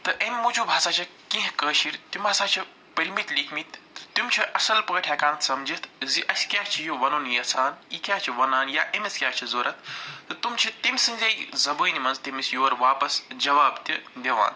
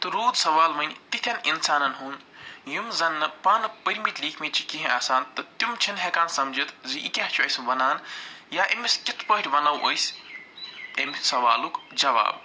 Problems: none marked